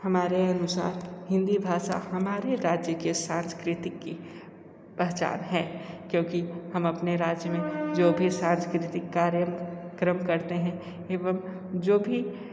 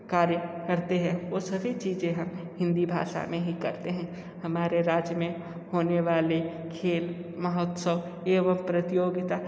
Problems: constant background noise